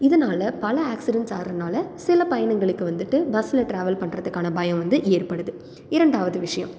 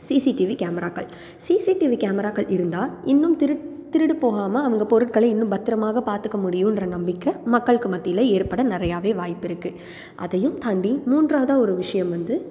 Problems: background sounds at intervals